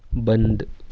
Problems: background sounds at intervals